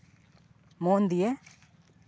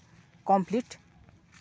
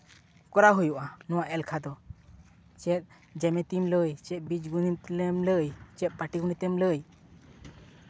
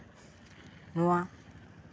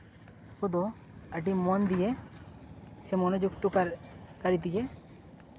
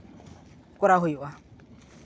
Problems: background sounds at intervals